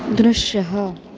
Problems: constant background noise